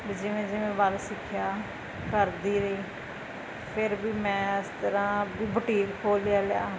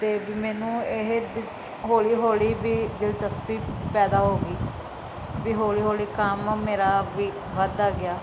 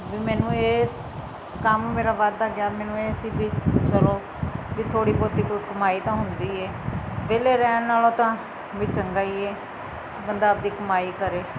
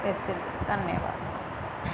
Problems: constant background noise